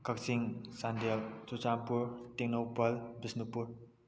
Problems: low volume